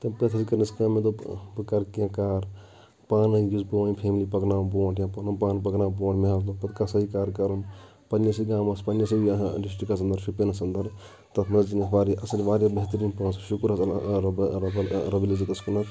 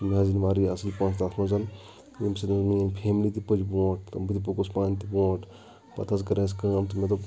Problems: background sounds at intervals, background conversations at intervals